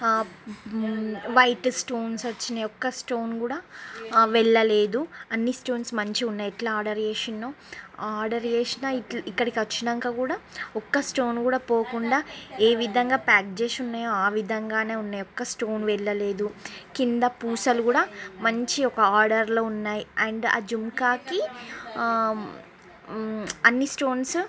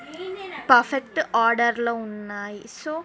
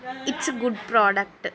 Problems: background conversations at intervals